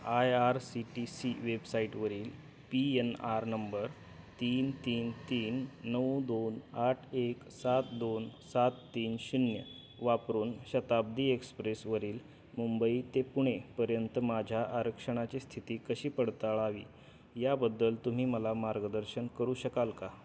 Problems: constant background noise